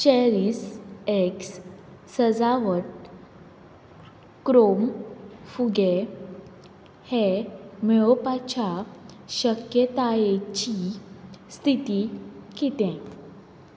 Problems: constant background noise